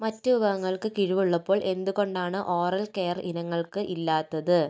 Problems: none marked